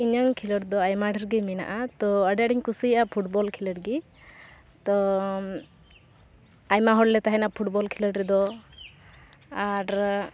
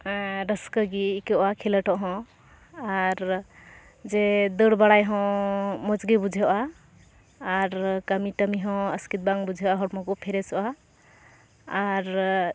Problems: none marked